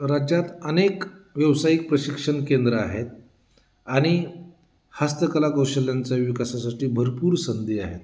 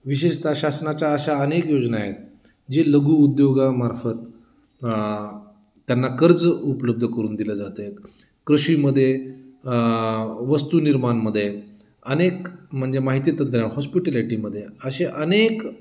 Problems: constant background noise, background conversations at intervals